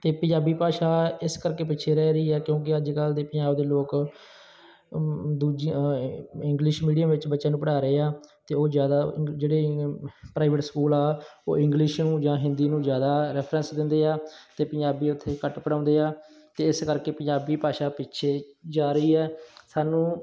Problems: none marked